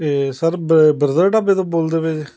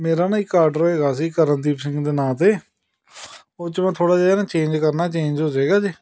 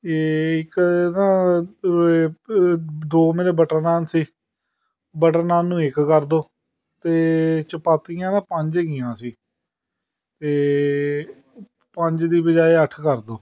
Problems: background sounds at intervals, continuous background conversations